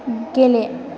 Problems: constant background noise